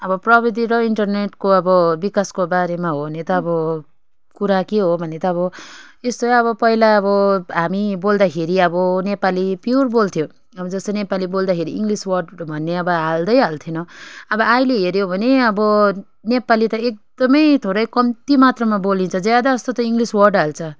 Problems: constant background noise